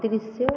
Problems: low volume